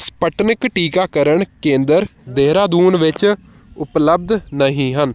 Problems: none marked